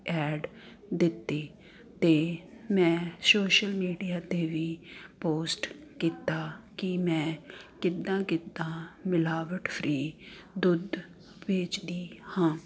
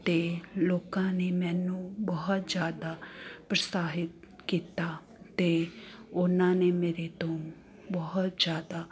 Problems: constant background noise